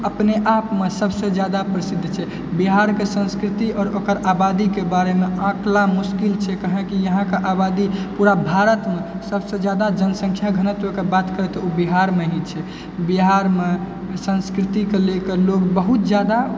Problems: constant background noise